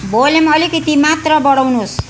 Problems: constant background noise